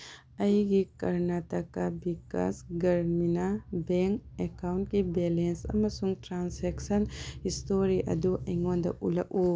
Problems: low volume